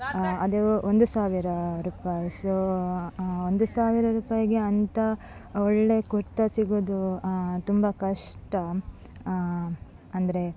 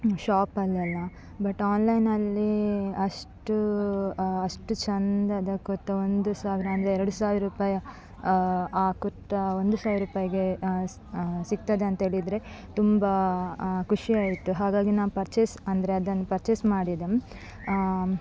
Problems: background sounds at intervals